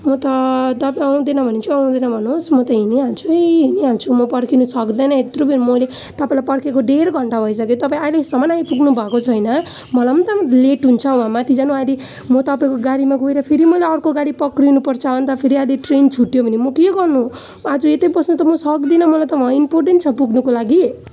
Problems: none marked